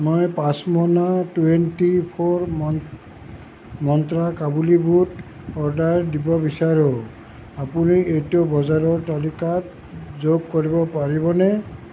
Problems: constant background noise